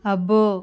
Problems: none marked